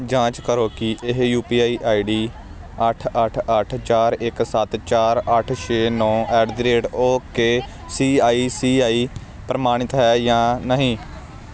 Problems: constant background noise